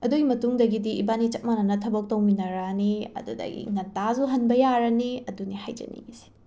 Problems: background sounds at intervals